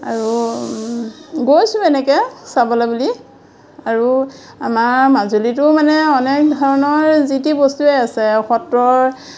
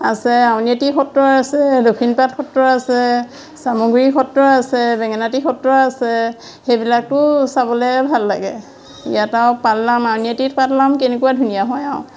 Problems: constant background noise, background conversations at intervals